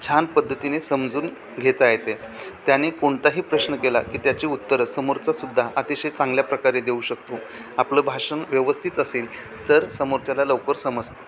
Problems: constant background noise, background conversations at intervals